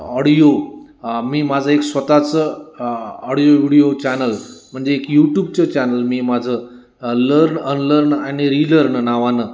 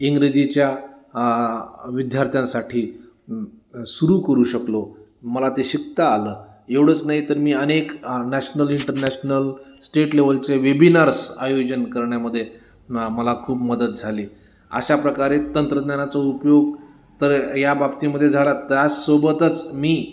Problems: constant background noise, background conversations at intervals